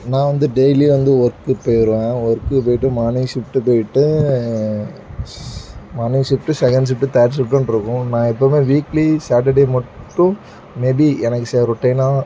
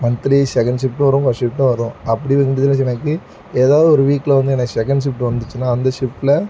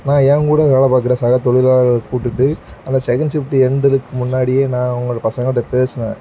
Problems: background sounds at intervals